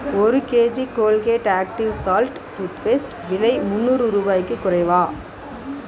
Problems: constant background noise